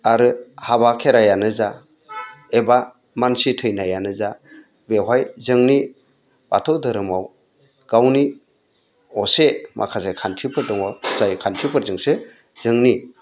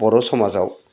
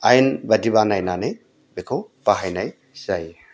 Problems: none marked